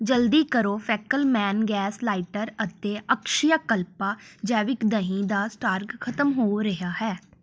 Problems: background sounds at intervals